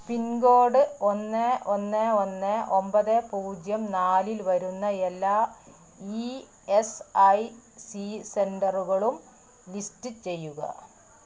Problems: constant background noise